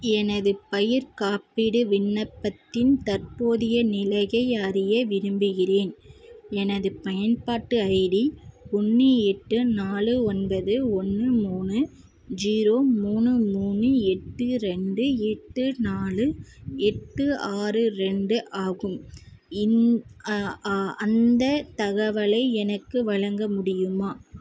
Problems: constant background noise